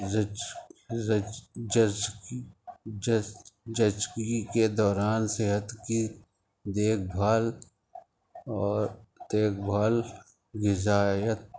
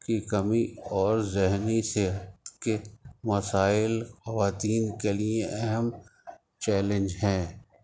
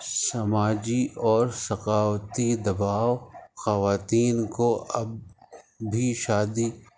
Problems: constant background noise